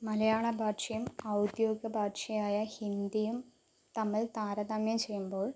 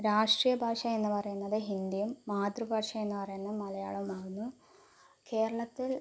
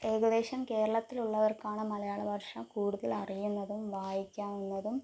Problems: low volume